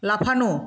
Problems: constant background noise